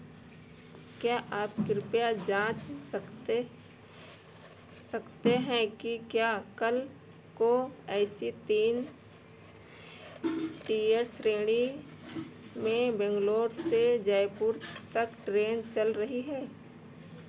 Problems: constant background noise